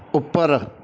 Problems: background sounds at intervals